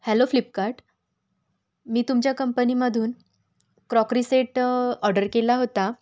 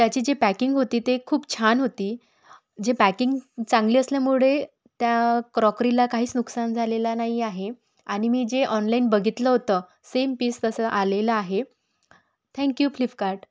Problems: background sounds at intervals